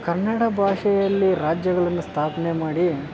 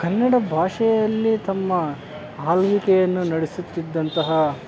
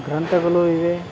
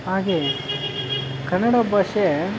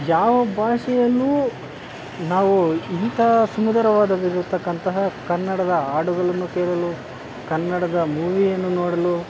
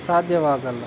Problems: constant background noise